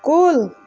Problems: constant background noise